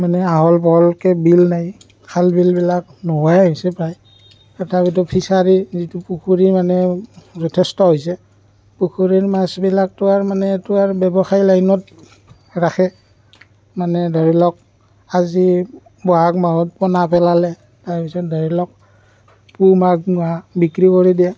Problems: none marked